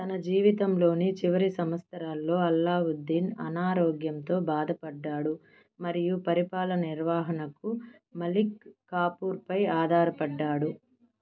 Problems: none marked